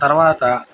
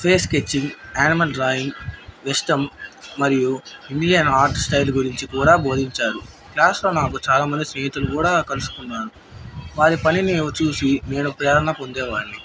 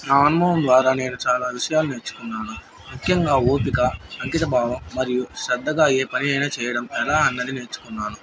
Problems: background sounds at intervals